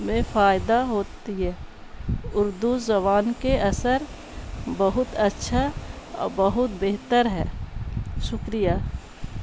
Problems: constant background noise